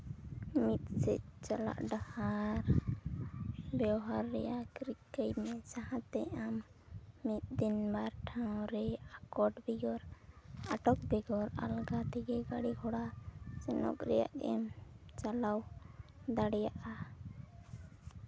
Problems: low volume